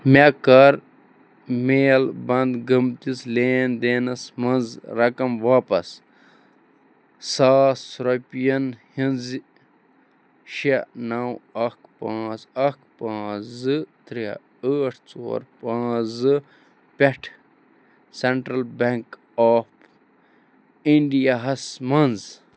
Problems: background sounds at intervals